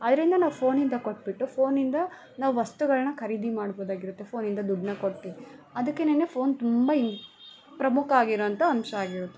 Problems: none marked